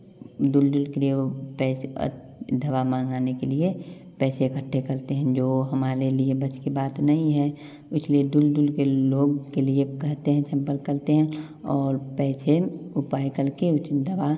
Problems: constant background noise, background conversations at intervals